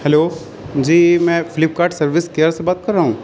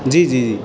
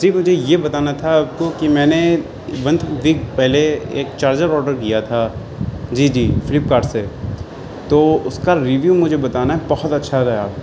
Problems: constant background noise